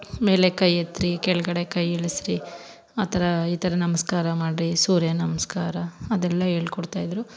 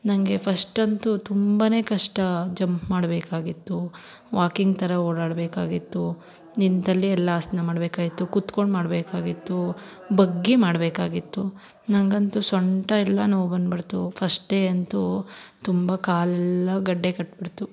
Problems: background sounds at intervals